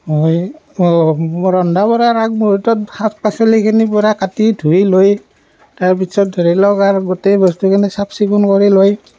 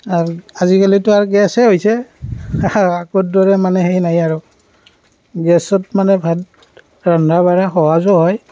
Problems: background sounds at intervals